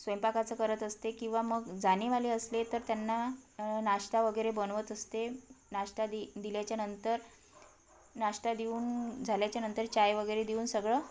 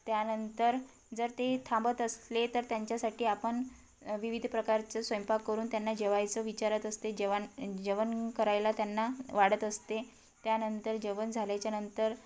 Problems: background sounds at intervals